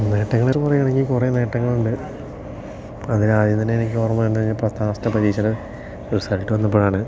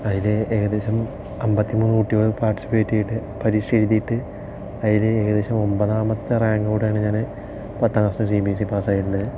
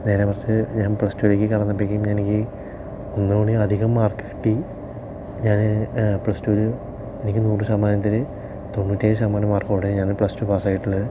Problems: low volume